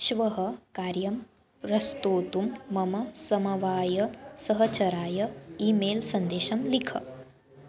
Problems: background conversations at intervals